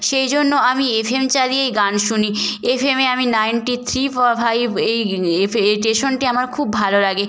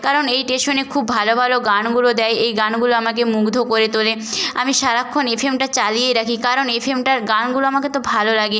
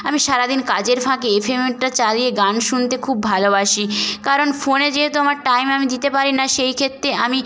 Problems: background sounds at intervals